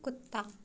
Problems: constant background noise